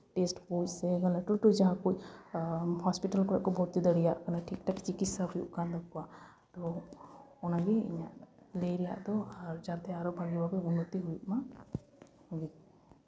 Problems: none marked